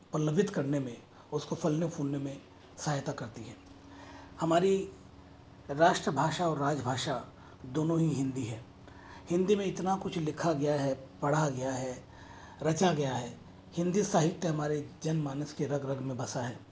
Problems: constant background noise